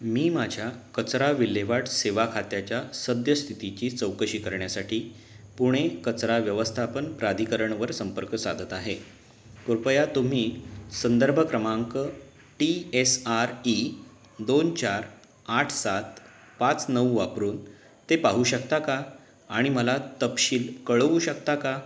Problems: background sounds at intervals